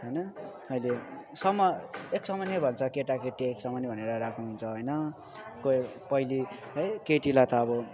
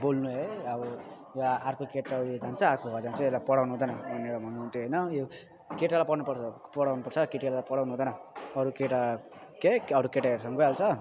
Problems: constant background noise, continuous background conversations